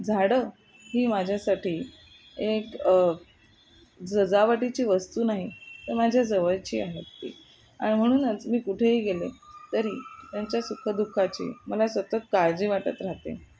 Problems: none marked